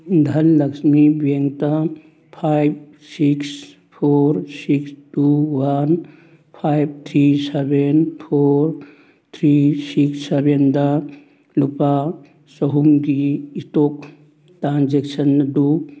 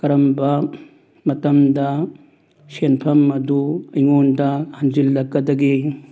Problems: background sounds at intervals